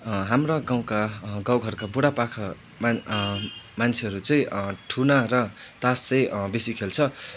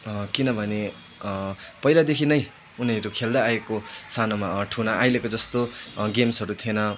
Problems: none marked